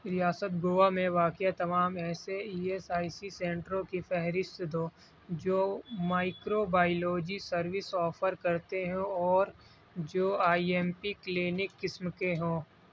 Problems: background sounds at intervals, low volume